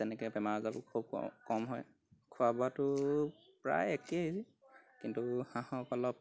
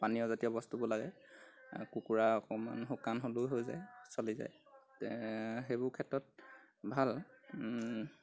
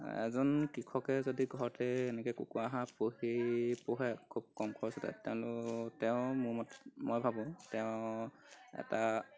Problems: none marked